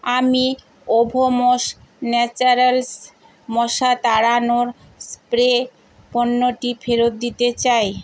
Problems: constant background noise